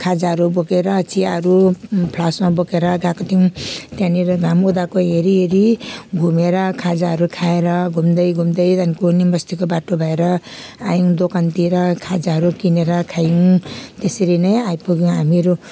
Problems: none marked